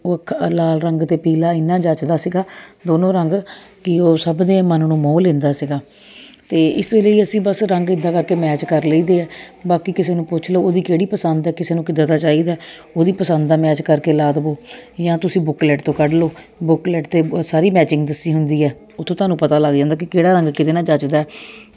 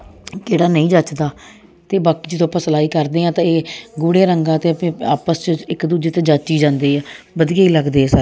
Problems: constant background noise